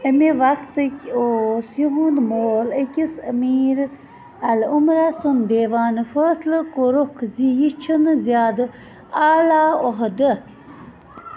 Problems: constant background noise, continuous background conversations